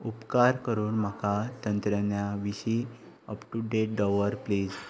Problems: constant background noise